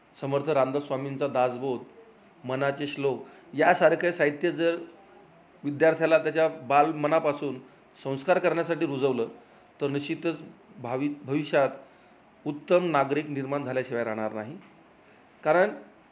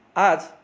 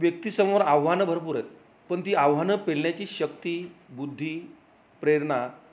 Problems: background sounds at intervals